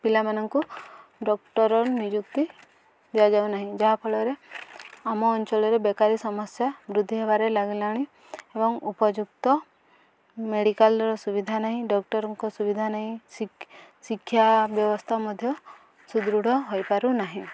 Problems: none marked